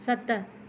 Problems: none marked